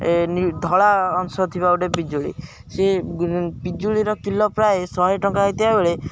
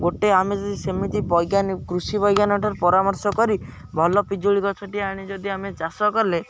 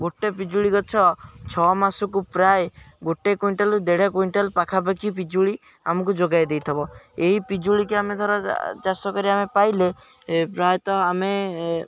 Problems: background sounds at intervals